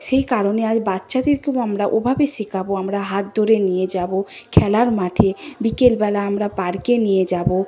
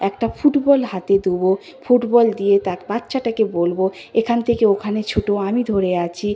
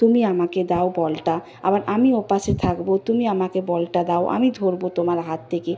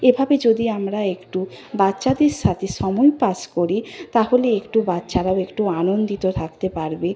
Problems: constant background noise, background conversations at intervals